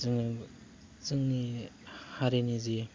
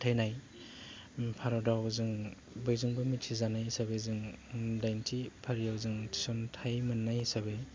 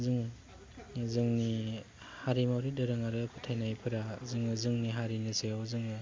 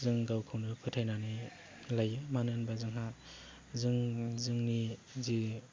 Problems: low volume